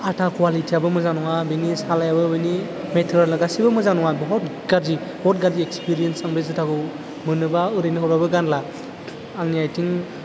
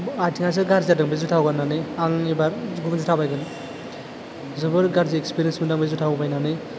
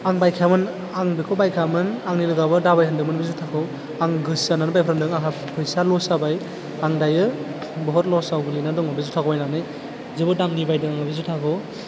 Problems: low volume